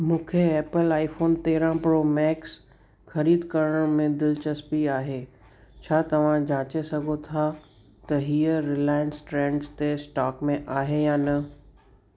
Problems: constant background noise, echo